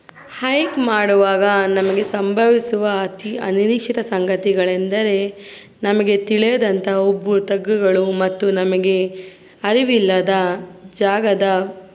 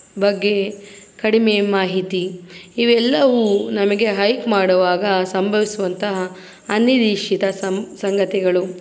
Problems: constant background noise